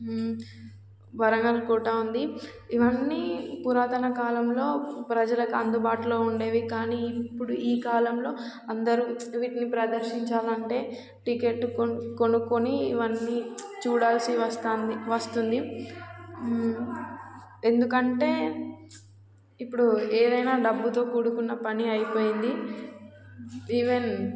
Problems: constant background noise